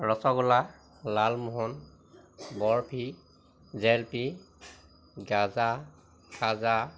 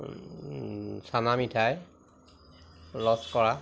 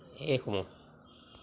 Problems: constant background noise